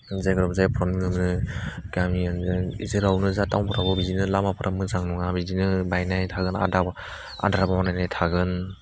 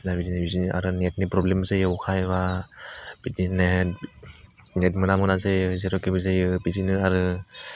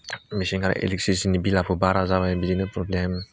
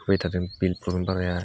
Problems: low volume